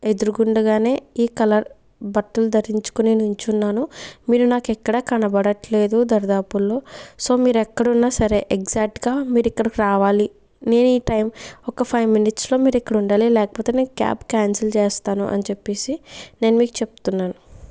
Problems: background sounds at intervals